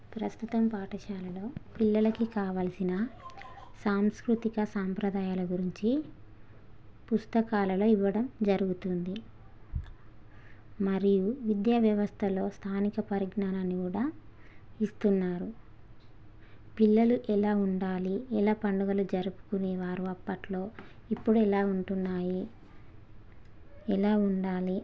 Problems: none marked